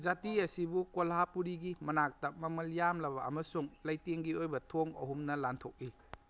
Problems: background conversations at intervals